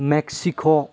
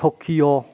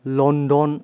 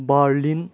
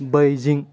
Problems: low volume